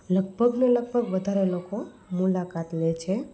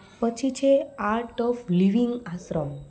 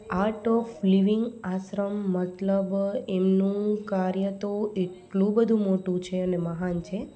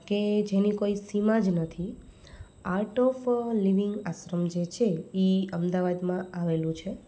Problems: none marked